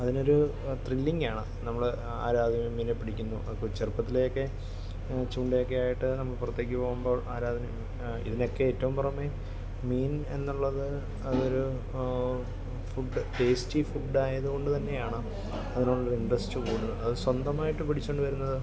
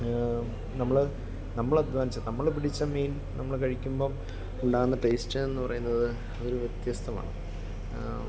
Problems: constant background noise, low volume